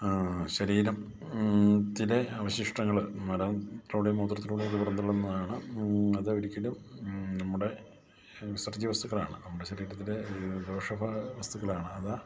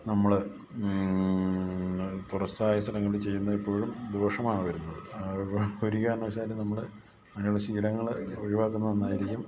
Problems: constant background noise, low volume